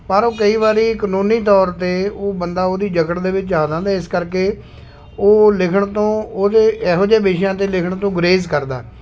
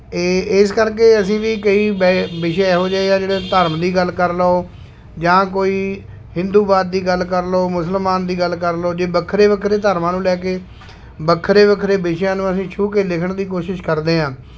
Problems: constant background noise